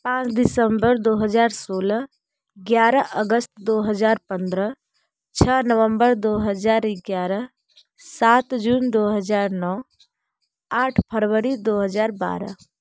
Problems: background sounds at intervals